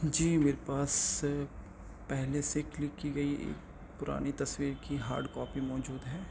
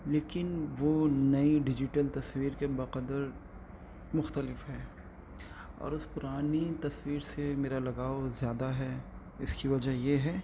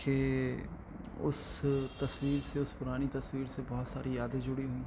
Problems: constant background noise